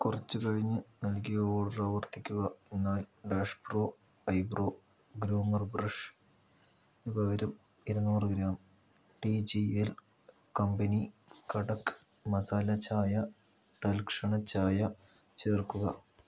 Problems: low volume